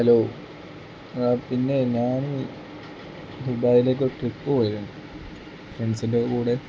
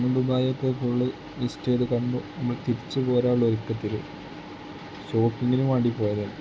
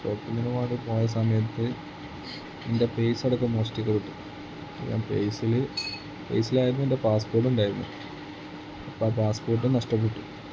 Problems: constant background noise, low volume